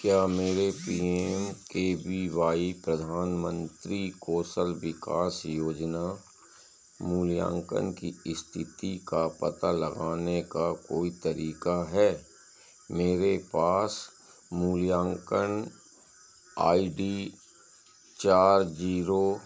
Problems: constant background noise